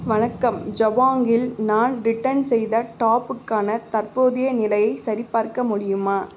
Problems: constant background noise